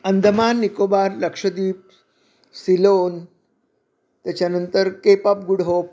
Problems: none marked